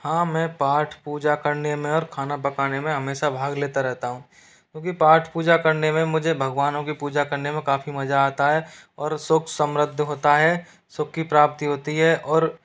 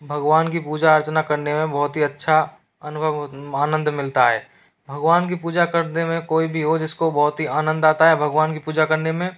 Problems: none marked